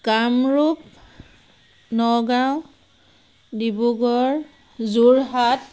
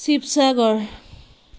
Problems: none marked